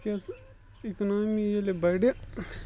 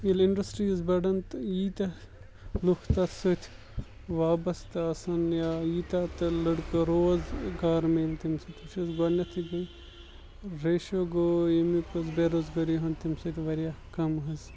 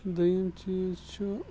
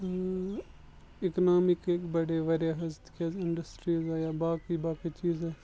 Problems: background sounds at intervals, low volume